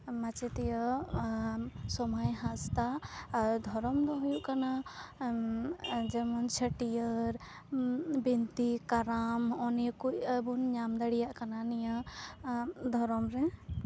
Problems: none marked